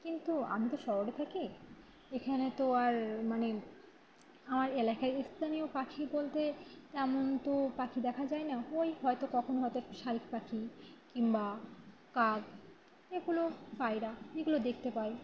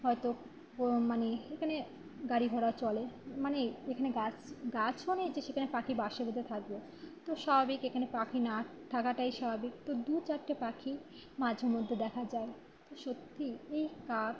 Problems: constant background noise